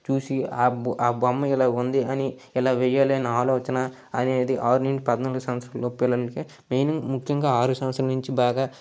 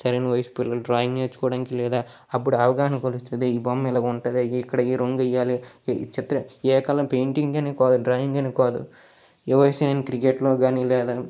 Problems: background sounds at intervals